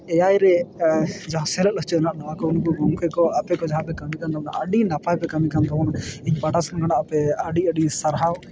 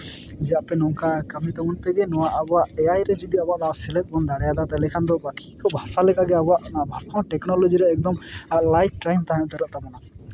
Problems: background sounds at intervals